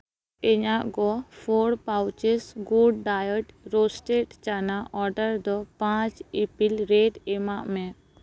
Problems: none marked